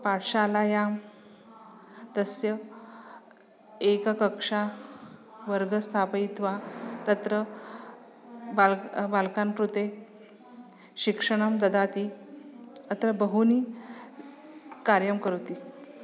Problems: constant background noise